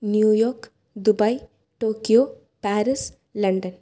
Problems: low volume